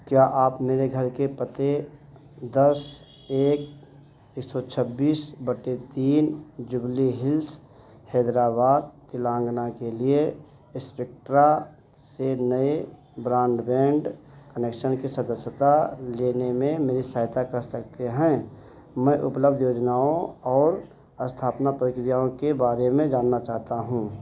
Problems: constant background noise